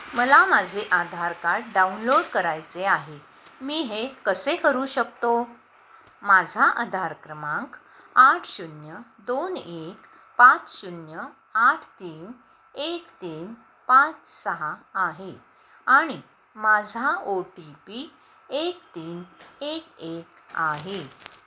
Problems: none marked